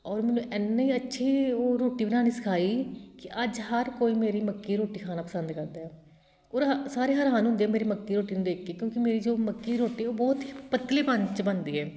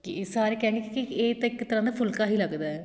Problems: constant background noise